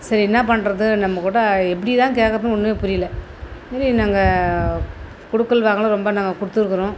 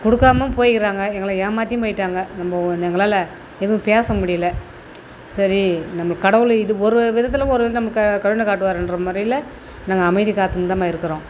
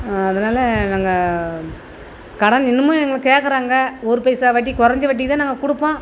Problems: none marked